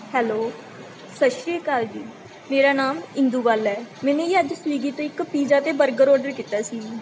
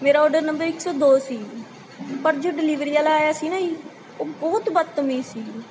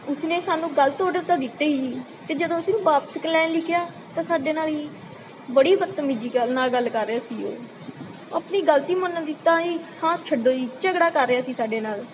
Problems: constant background noise